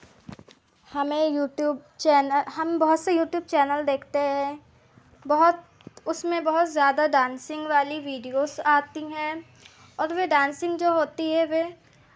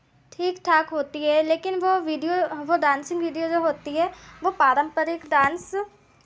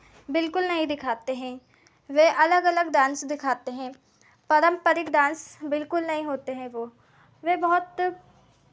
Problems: constant background noise, continuous background conversations